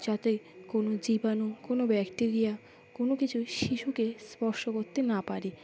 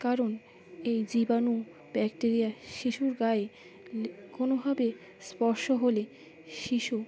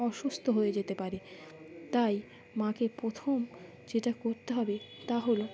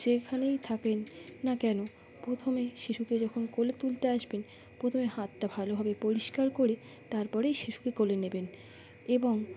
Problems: background sounds at intervals